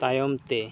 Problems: none marked